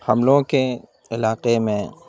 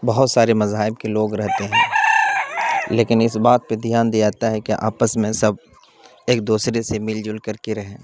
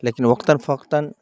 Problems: constant background noise